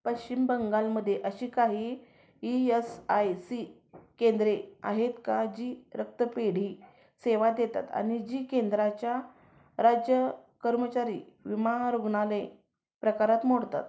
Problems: background sounds at intervals, background conversations at intervals